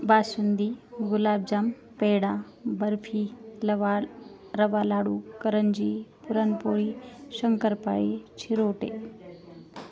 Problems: constant background noise, continuous background conversations